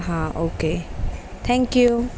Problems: constant background noise